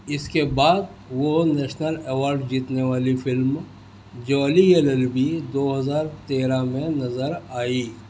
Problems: constant background noise